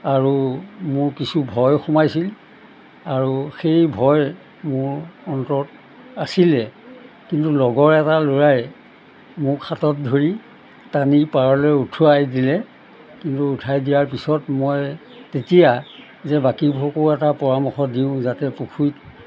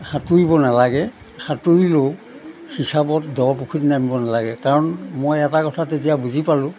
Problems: none marked